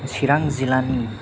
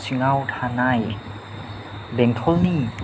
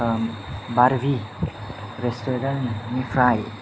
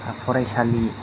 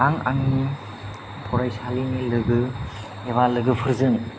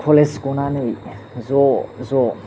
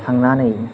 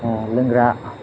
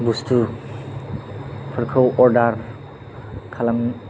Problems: low volume